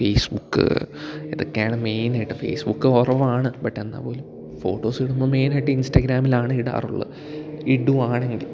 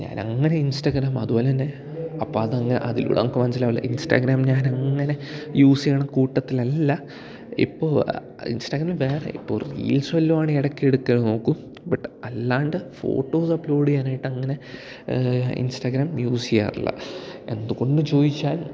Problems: none marked